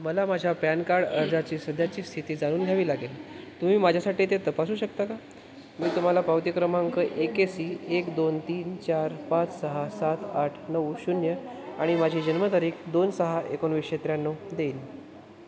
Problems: constant background noise